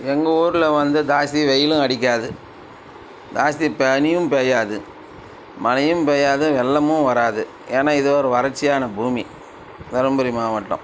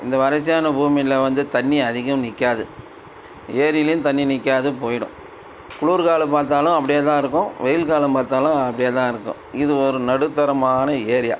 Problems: constant background noise